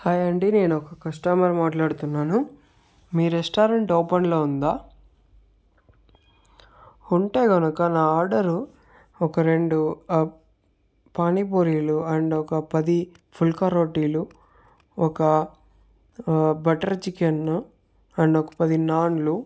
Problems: none marked